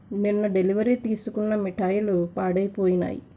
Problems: constant background noise